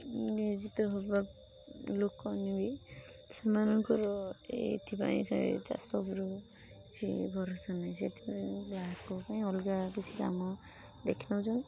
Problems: constant background noise